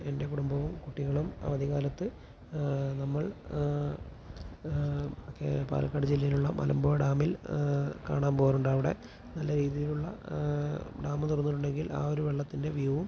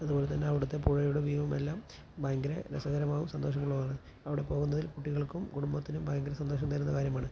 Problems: constant background noise